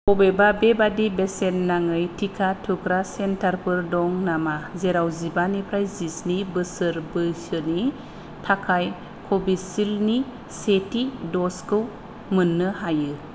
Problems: low volume